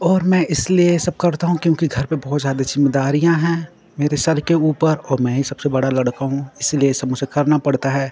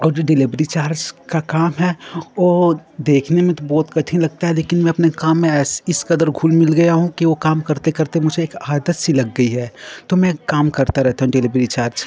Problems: continuous background conversations